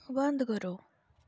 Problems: low volume